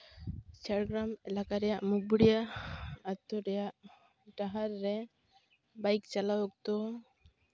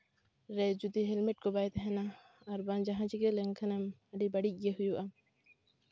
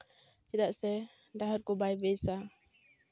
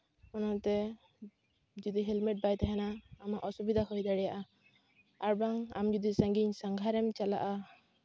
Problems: background sounds at intervals